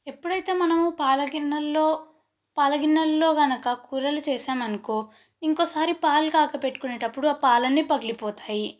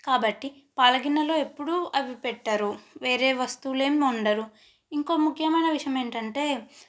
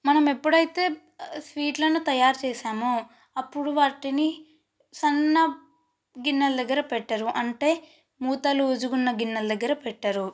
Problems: none marked